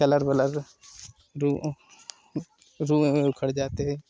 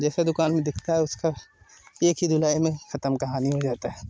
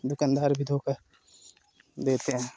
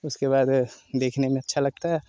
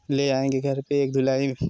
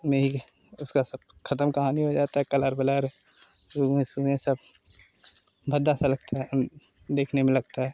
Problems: constant background noise